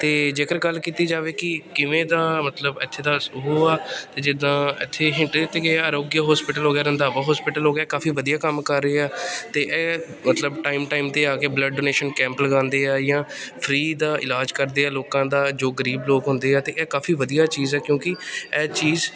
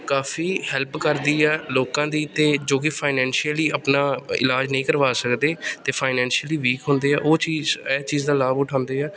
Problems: background sounds at intervals